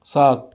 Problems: constant background noise